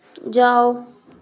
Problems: background sounds at intervals